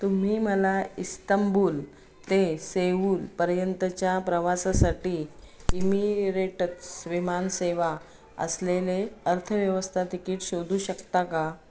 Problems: none marked